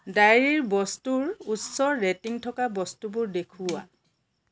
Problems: background sounds at intervals